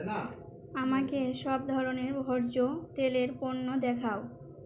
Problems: none marked